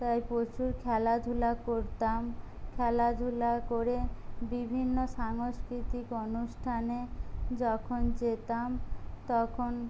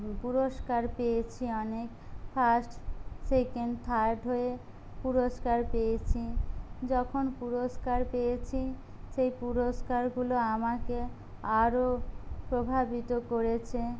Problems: low volume